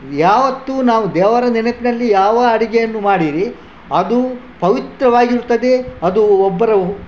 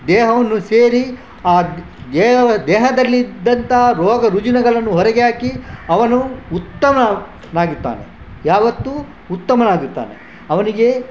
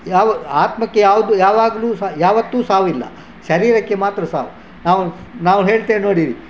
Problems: background sounds at intervals, background conversations at intervals